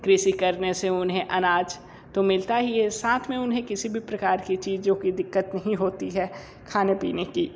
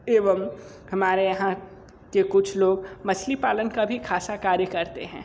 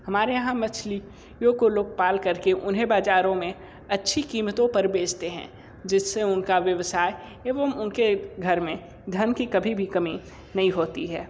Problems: constant background noise, echo